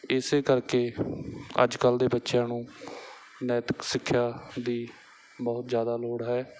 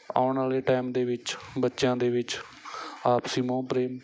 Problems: background sounds at intervals, background conversations at intervals